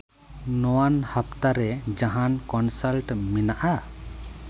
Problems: none marked